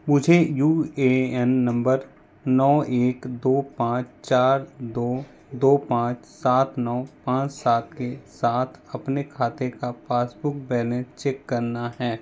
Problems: none marked